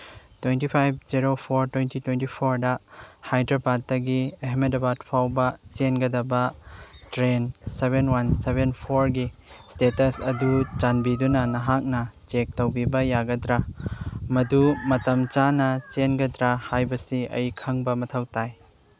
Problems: background sounds at intervals